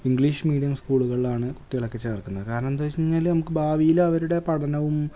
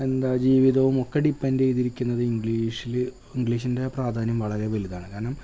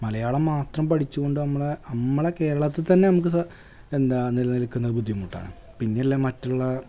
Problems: constant background noise